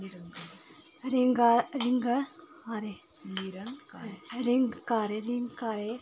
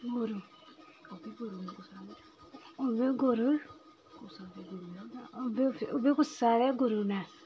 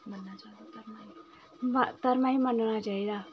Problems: constant background noise, continuous background conversations